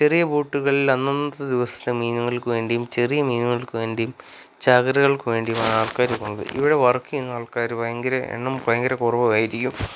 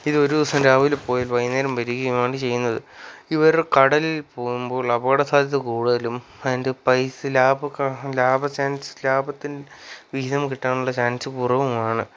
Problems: none marked